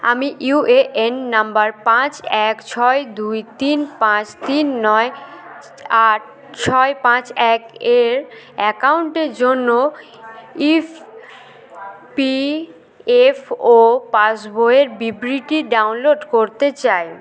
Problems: background sounds at intervals, continuous background conversations